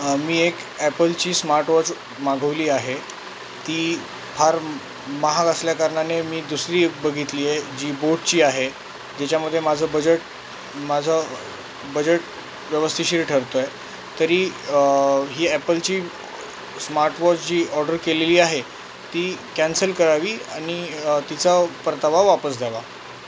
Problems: constant background noise